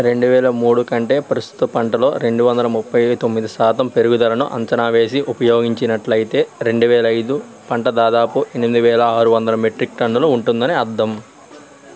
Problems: constant background noise